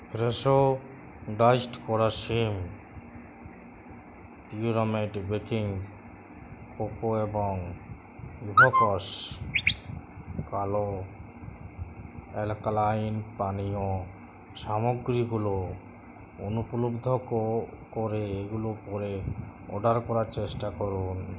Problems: none marked